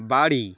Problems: none marked